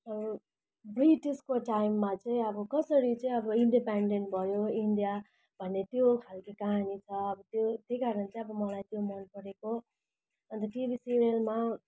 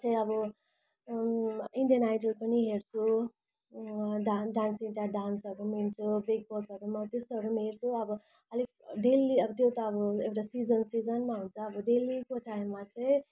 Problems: background sounds at intervals